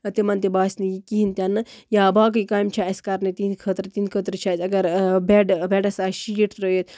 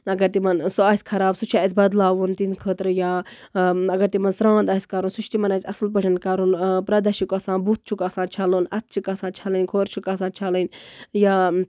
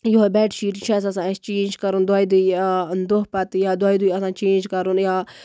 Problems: constant background noise